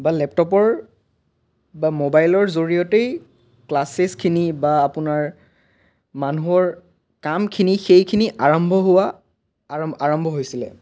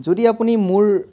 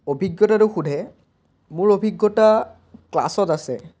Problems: background sounds at intervals